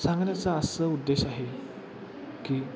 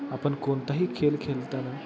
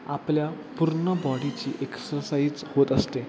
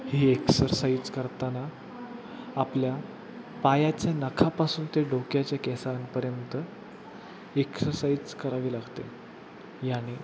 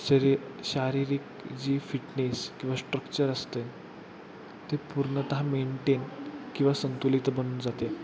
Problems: constant background noise